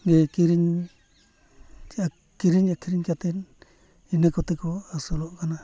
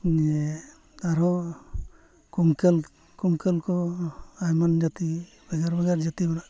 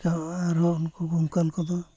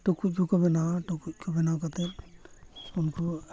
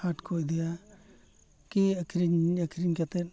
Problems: background sounds at intervals, continuous background conversations